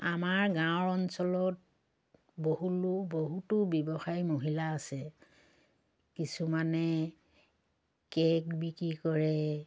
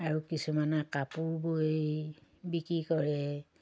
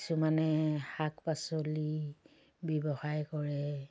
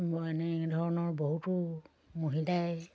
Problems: low volume